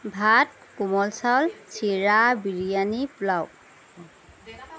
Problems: background sounds at intervals, background conversations at intervals